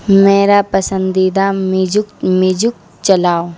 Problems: constant background noise